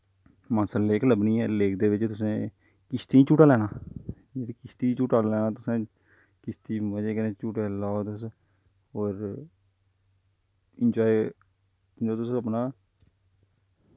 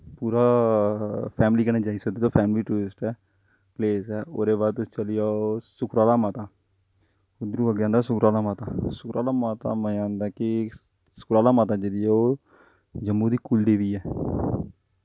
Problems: low volume